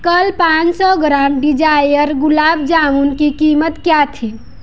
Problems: background sounds at intervals